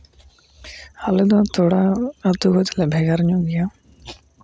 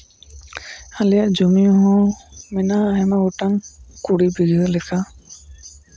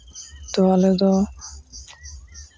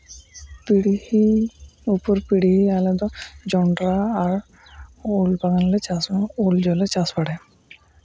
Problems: constant background noise